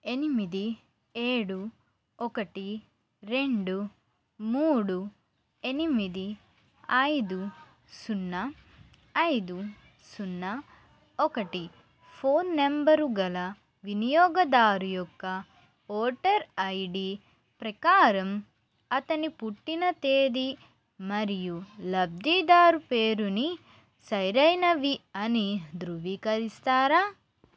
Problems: constant background noise